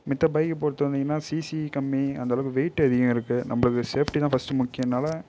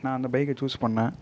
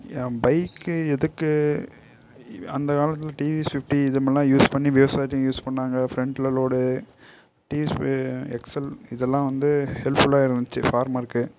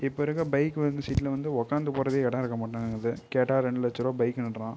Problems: low volume